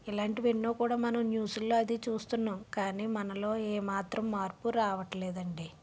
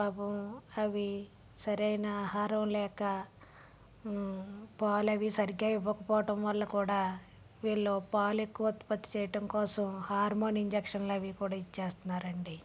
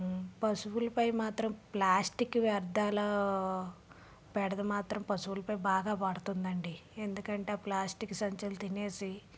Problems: background sounds at intervals, low volume